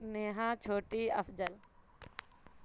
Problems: constant background noise